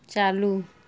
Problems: none marked